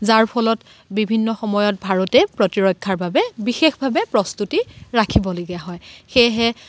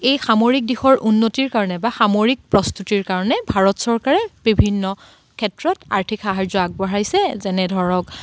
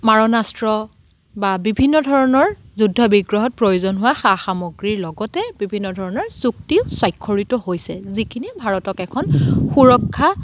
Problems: none marked